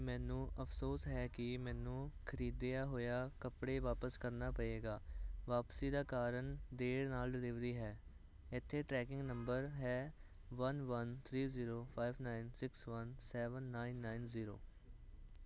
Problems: constant background noise